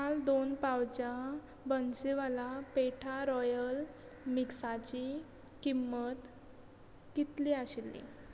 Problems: background sounds at intervals